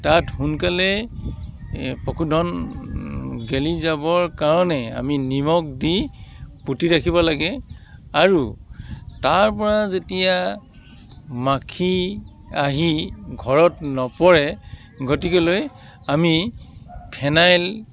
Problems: constant background noise